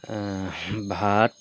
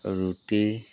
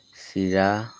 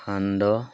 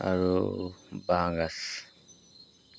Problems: background sounds at intervals